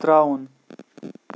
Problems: background sounds at intervals